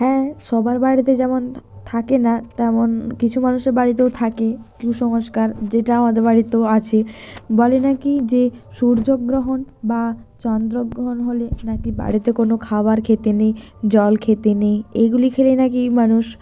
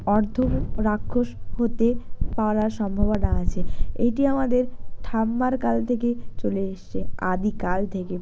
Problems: background sounds at intervals